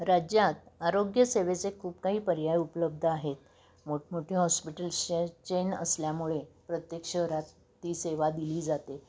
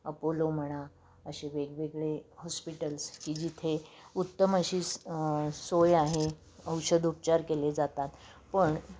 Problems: constant background noise